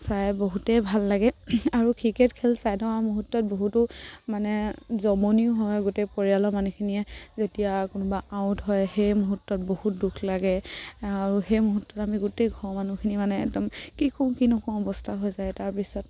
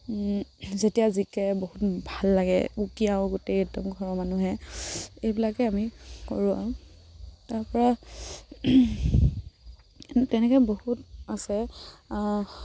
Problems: none marked